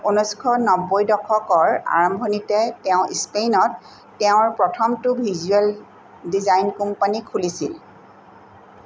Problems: constant background noise